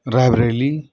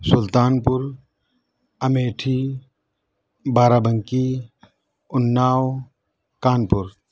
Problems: none marked